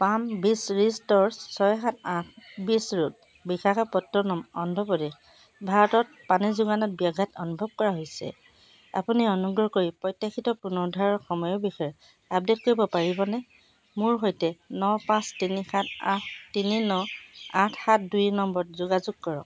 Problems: constant background noise